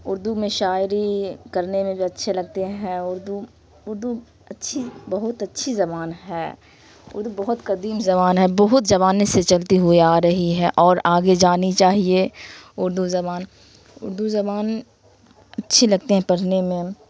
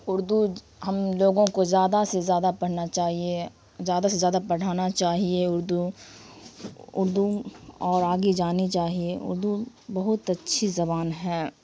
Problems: constant background noise